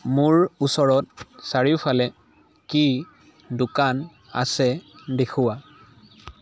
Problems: none marked